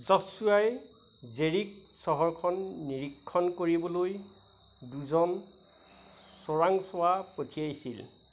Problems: none marked